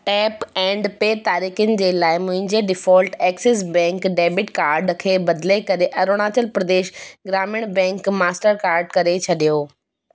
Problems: constant background noise, echo